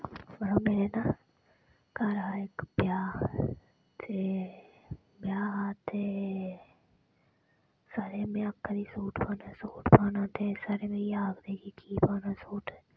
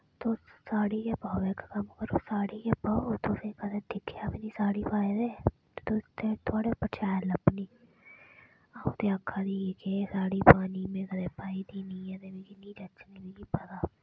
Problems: background sounds at intervals